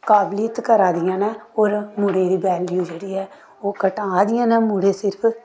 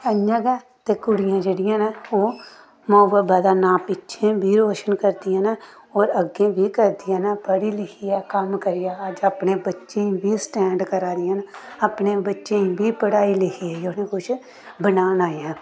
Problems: constant background noise